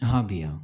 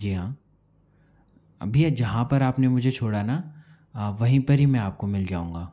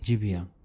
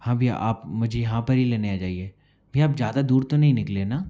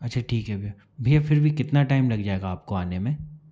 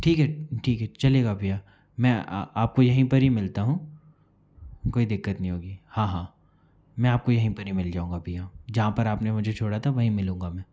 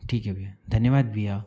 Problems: background sounds at intervals